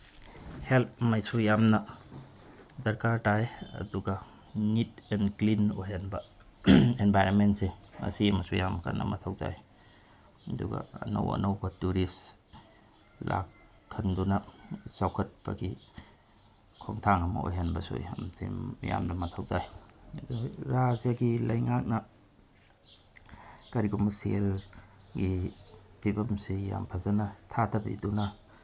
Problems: constant background noise, low volume